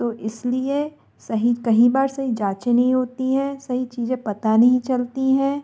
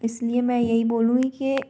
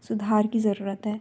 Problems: constant background noise